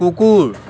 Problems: constant background noise